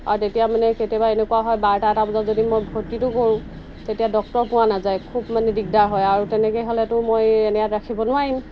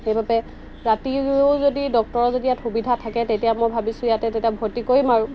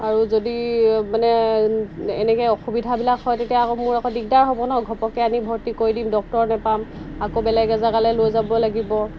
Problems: constant background noise